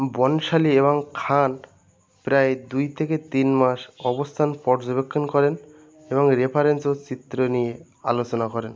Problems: background sounds at intervals